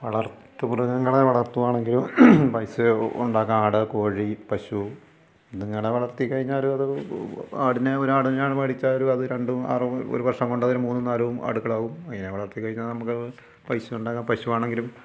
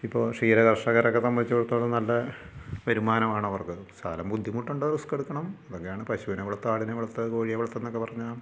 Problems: low volume